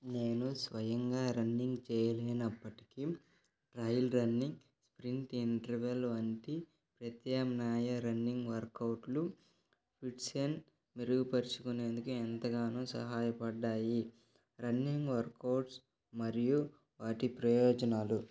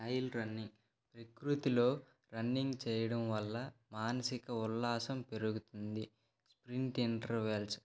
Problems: background conversations at intervals